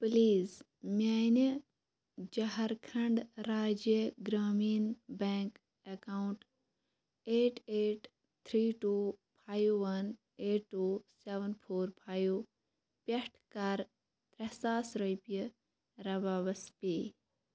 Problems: constant background noise